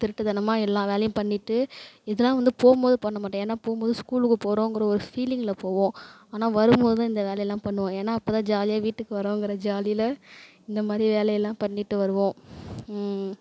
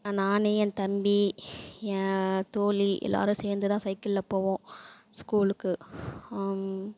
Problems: none marked